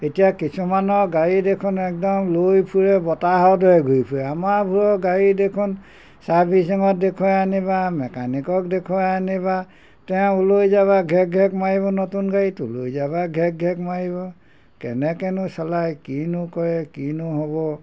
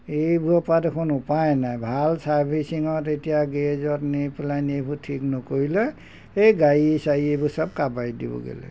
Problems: none marked